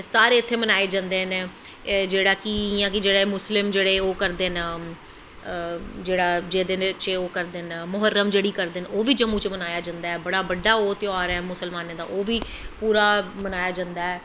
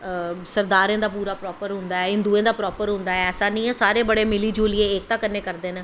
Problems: constant background noise